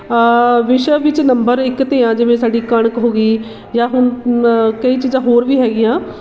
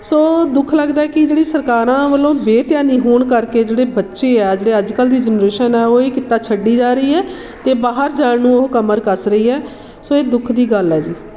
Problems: constant background noise